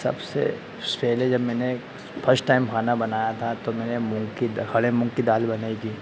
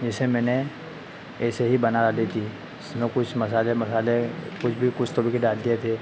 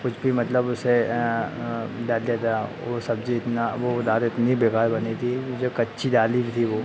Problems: constant background noise